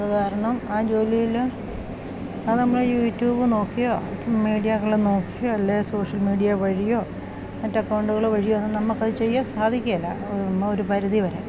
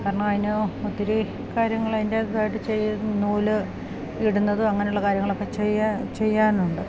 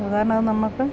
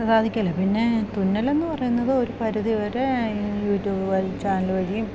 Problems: constant background noise